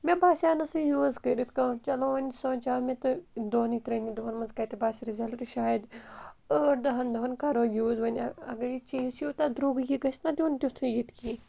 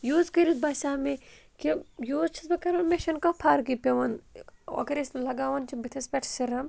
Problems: constant background noise